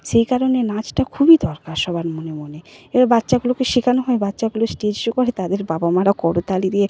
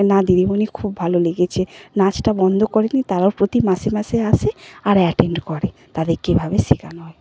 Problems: none marked